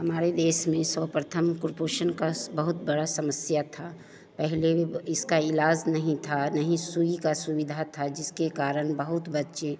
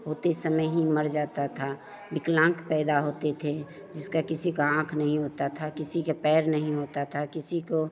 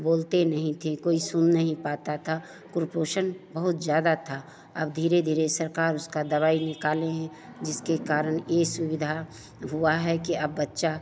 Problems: constant background noise, continuous background conversations